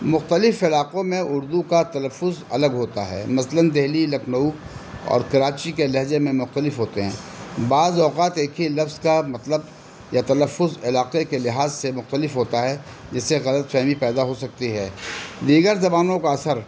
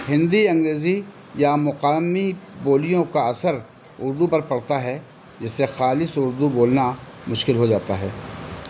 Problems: constant background noise